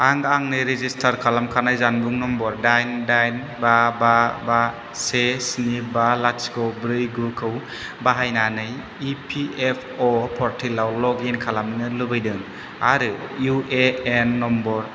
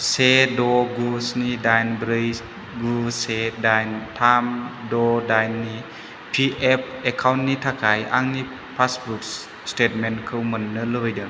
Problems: constant background noise